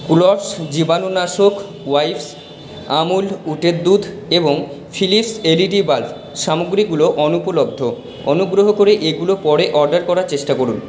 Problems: constant background noise, echo